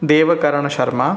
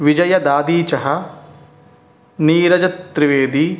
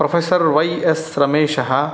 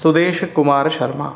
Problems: none marked